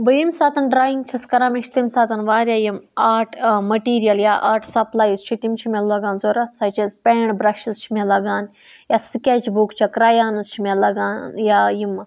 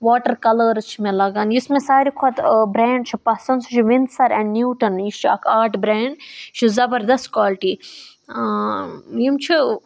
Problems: none marked